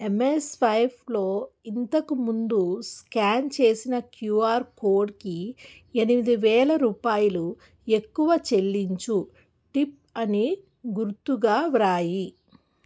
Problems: none marked